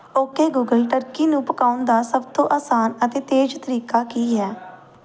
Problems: background sounds at intervals, background conversations at intervals